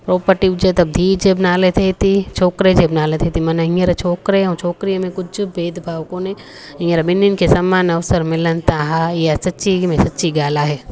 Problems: constant background noise